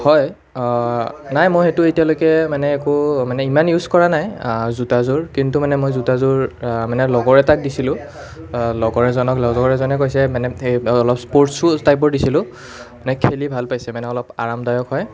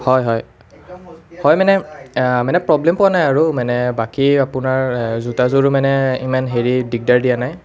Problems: none marked